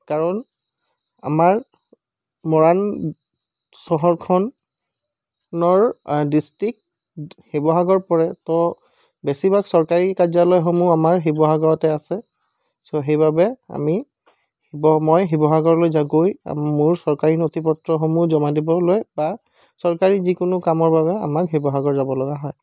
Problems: background sounds at intervals